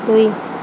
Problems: constant background noise